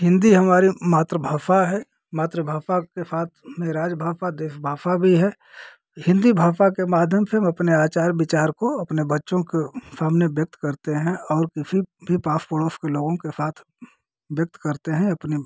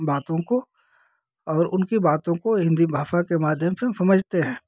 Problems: constant background noise